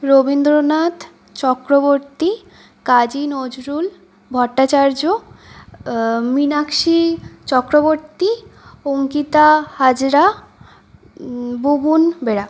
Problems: none marked